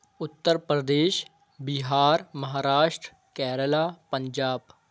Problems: none marked